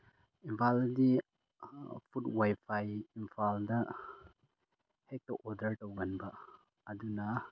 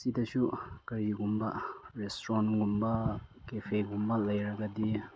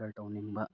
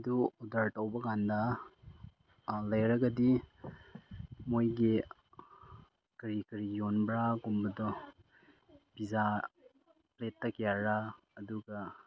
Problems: low volume